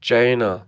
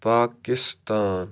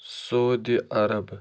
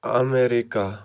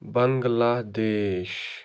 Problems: none marked